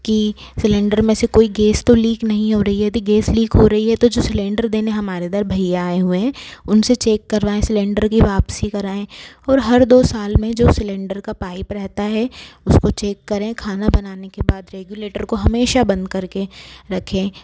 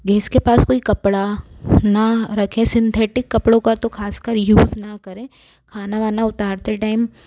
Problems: constant background noise